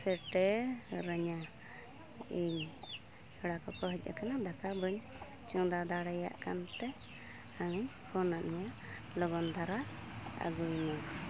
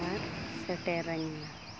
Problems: constant background noise